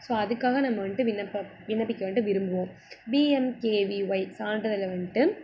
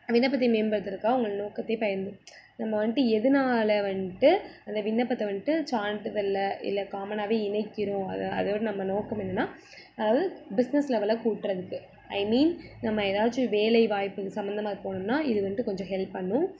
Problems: none marked